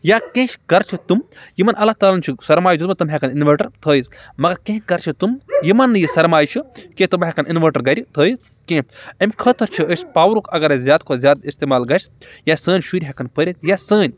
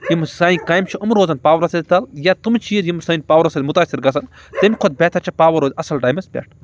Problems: background sounds at intervals